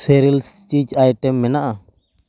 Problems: background sounds at intervals